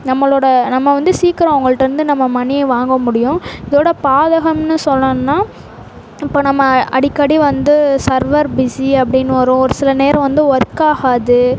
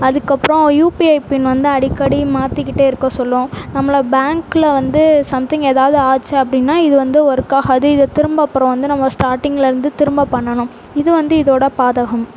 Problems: constant background noise